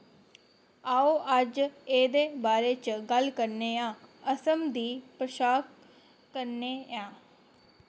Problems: constant background noise